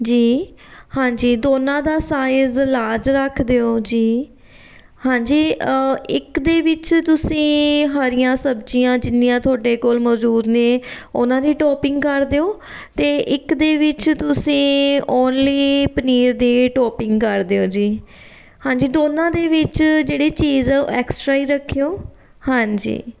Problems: background sounds at intervals